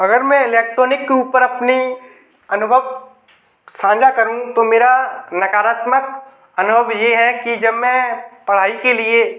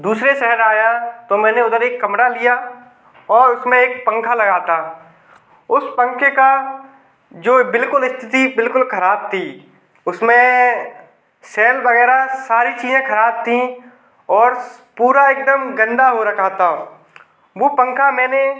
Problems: background sounds at intervals